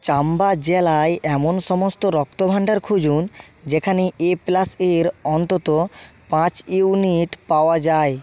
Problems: none marked